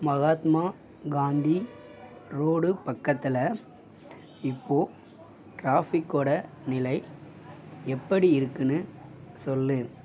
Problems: constant background noise